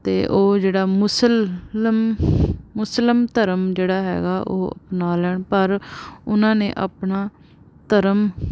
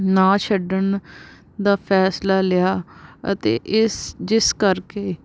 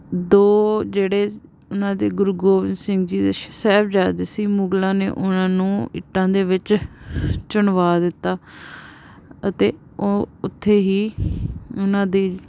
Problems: none marked